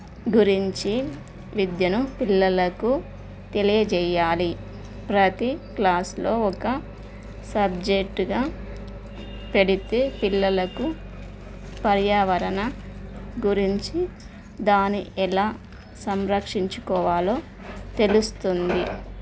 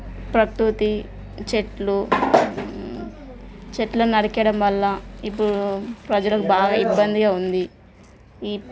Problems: none marked